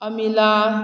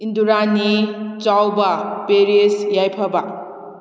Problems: none marked